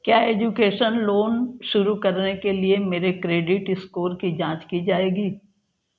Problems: none marked